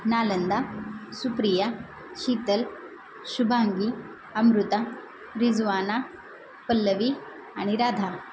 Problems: constant background noise